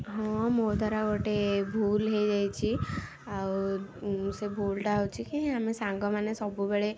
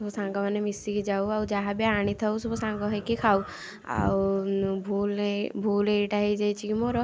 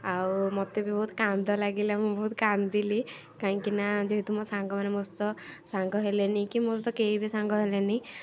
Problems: constant background noise